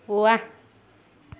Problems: constant background noise